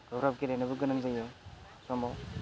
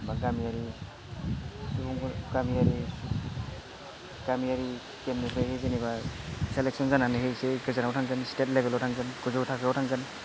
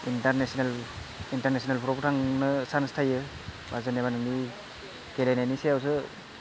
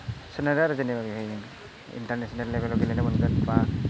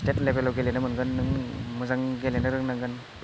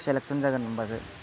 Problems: constant background noise, background conversations at intervals